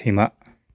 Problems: none marked